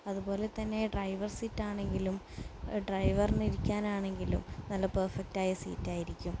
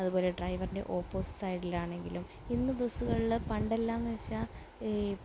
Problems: none marked